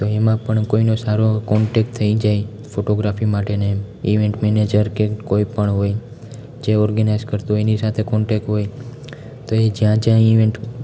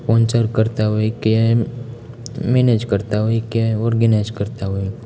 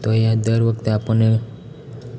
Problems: none marked